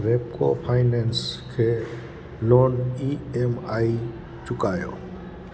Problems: constant background noise